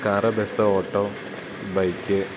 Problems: constant background noise